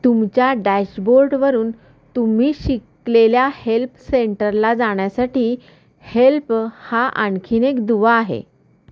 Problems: constant background noise, echo